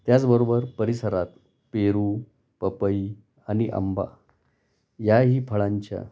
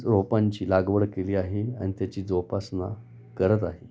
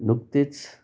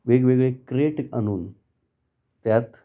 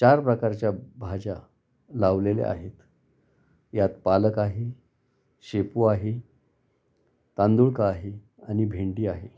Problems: none marked